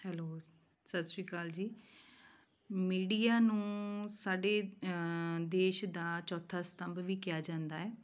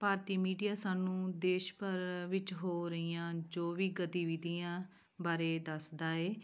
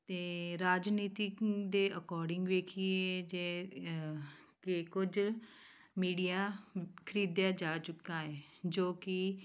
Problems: none marked